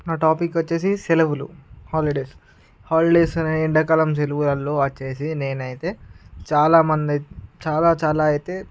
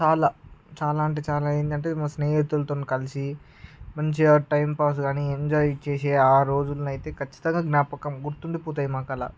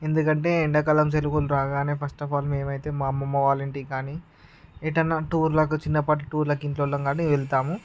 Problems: none marked